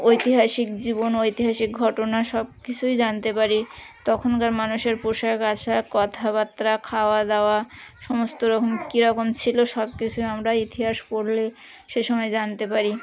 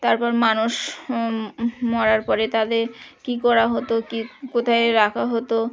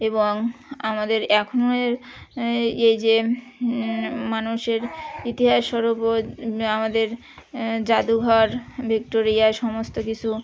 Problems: constant background noise, continuous background conversations